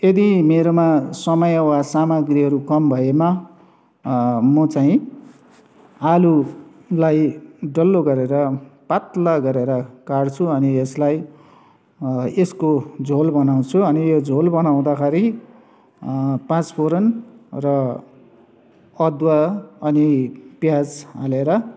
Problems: none marked